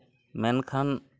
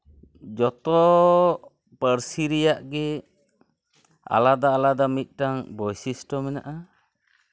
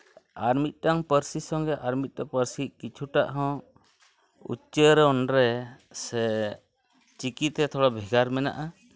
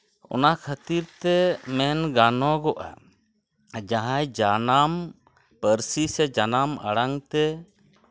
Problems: constant background noise, continuous background conversations